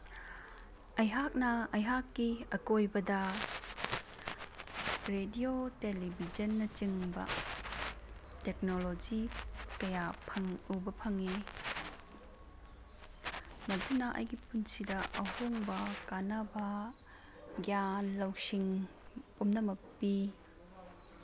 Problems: background sounds at intervals